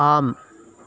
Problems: constant background noise